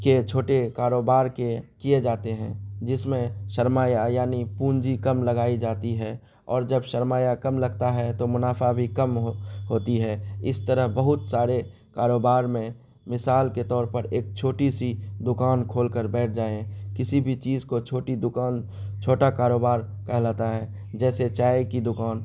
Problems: constant background noise